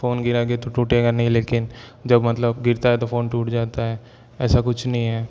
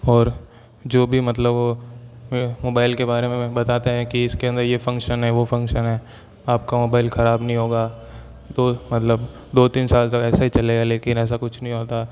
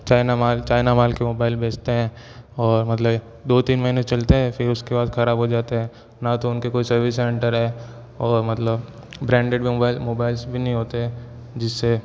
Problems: background sounds at intervals